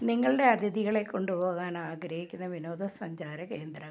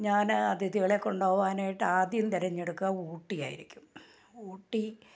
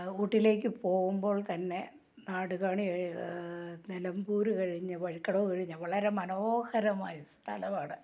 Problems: low volume